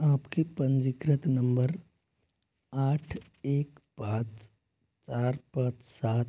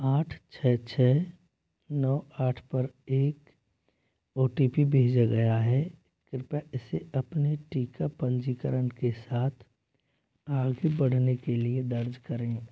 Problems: low volume